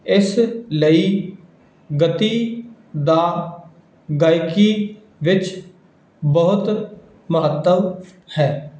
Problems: background sounds at intervals